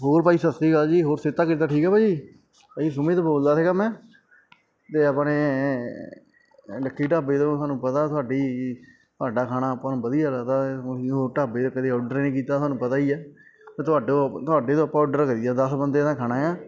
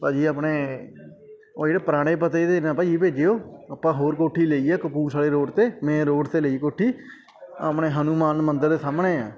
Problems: constant background noise